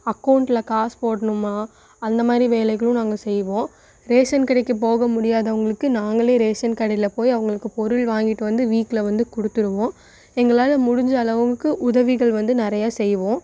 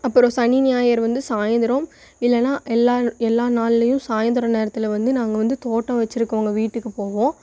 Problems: none marked